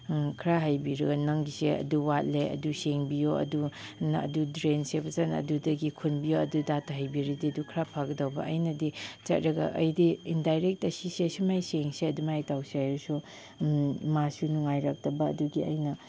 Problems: background sounds at intervals